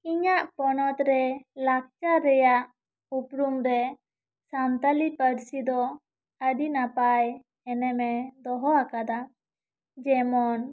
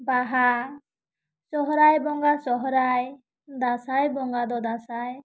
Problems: none marked